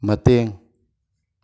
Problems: none marked